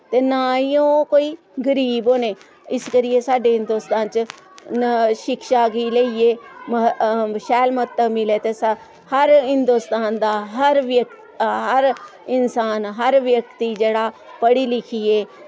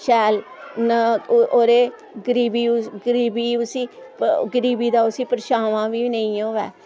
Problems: constant background noise